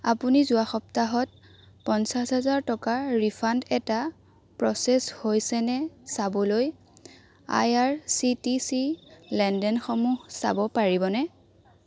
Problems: constant background noise, continuous background conversations